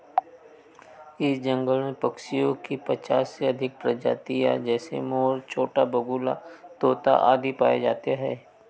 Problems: background sounds at intervals